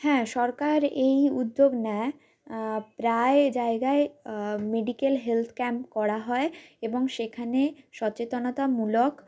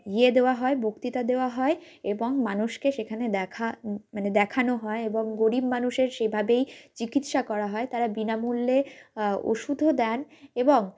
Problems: background sounds at intervals